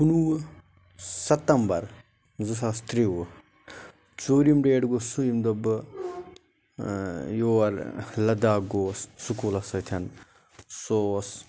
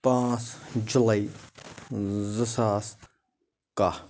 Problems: background sounds at intervals